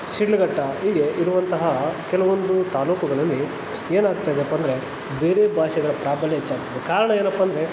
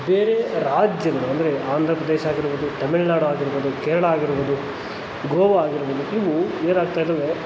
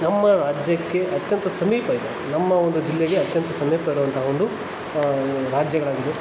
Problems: constant background noise